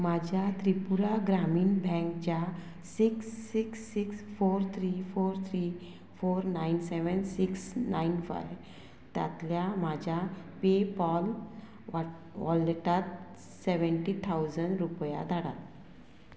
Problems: none marked